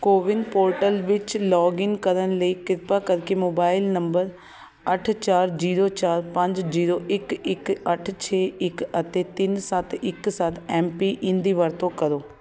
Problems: continuous background conversations